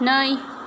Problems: none marked